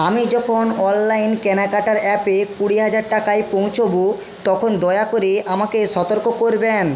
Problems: constant background noise